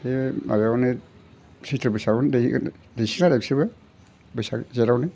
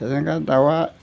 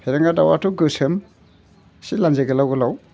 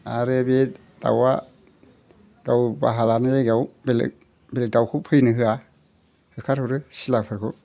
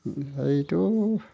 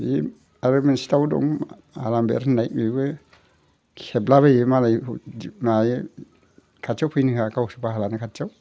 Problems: constant background noise